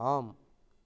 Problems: low volume